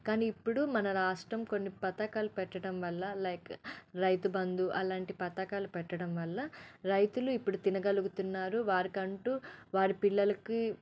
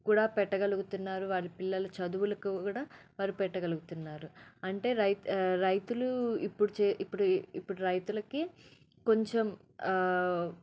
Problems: low volume